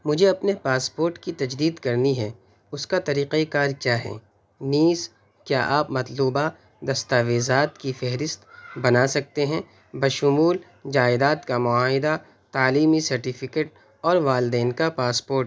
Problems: constant background noise